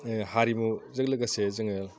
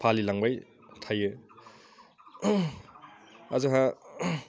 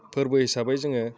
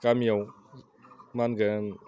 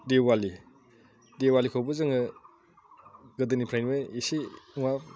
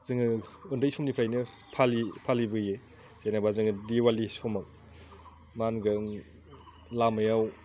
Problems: none marked